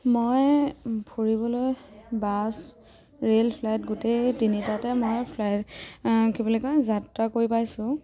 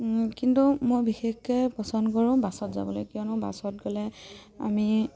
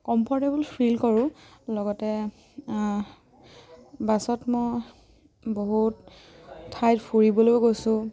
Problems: background sounds at intervals